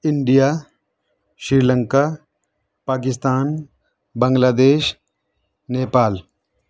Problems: none marked